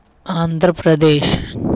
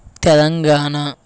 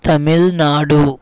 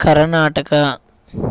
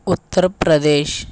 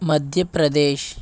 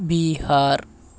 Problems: background sounds at intervals